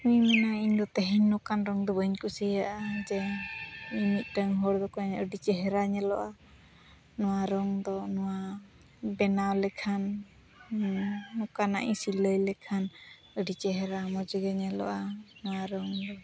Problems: none marked